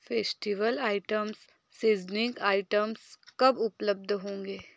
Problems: background sounds at intervals